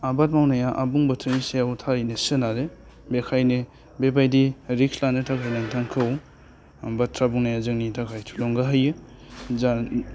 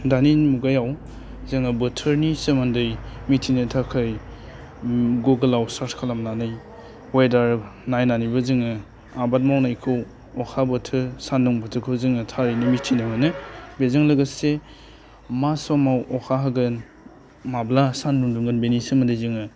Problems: constant background noise